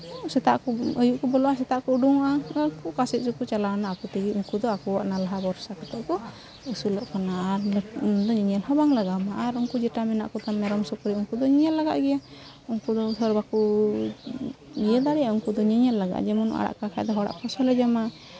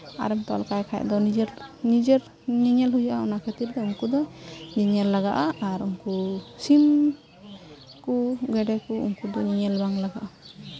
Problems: constant background noise